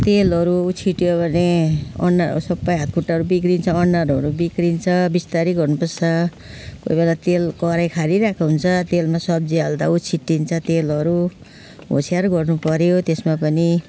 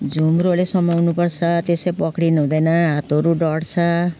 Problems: none marked